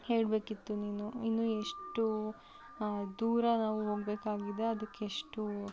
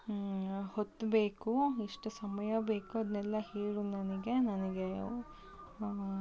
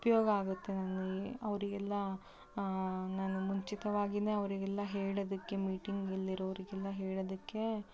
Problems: constant background noise